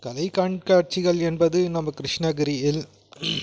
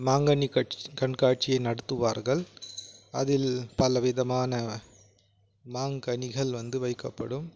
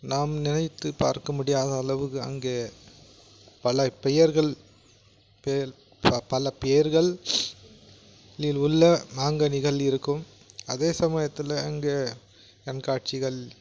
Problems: background sounds at intervals